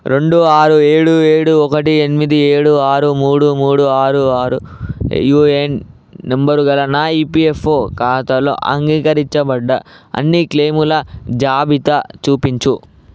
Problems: none marked